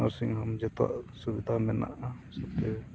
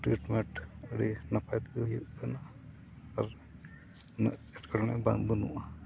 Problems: background sounds at intervals, low volume